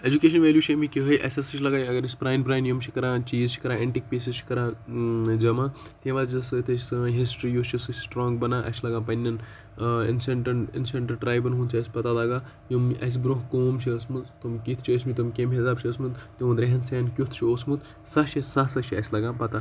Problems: constant background noise